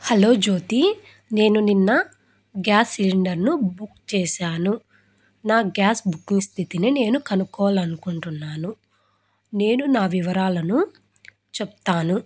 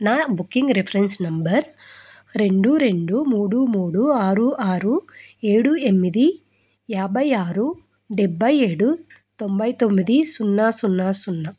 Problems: none marked